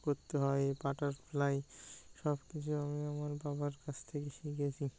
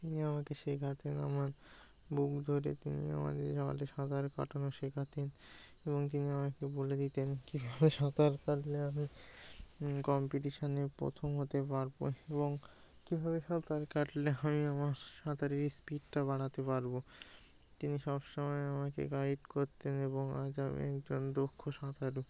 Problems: none marked